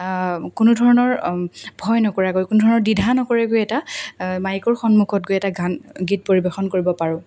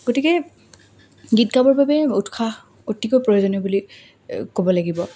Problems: none marked